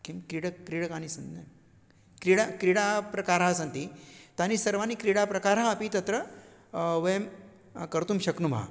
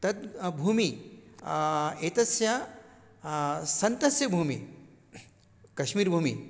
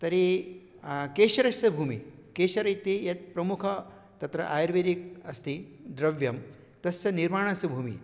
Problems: none marked